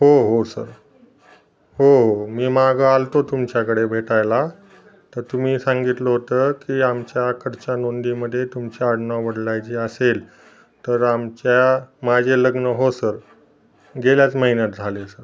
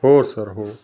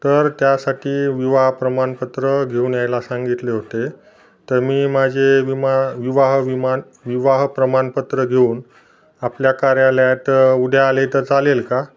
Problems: constant background noise, background conversations at intervals